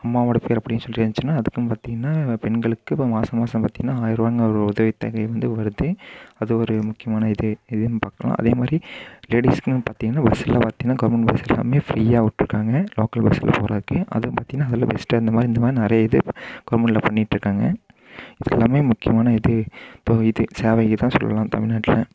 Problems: none marked